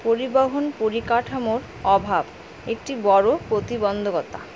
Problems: none marked